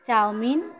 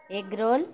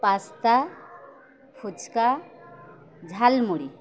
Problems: none marked